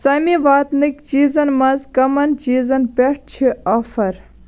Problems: background sounds at intervals